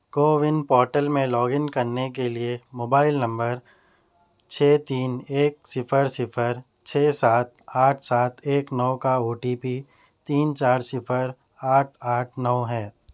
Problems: none marked